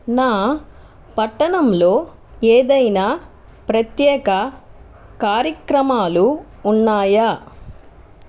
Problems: constant background noise